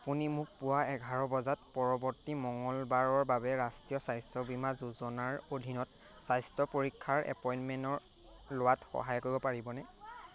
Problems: none marked